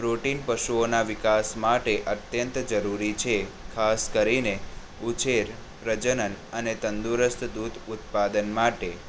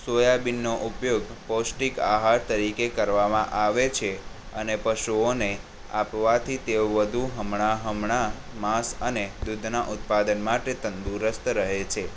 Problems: none marked